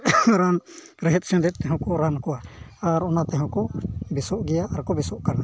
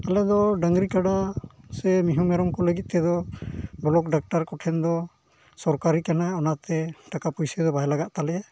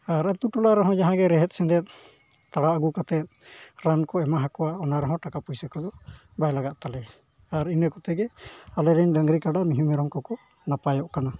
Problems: background sounds at intervals, low volume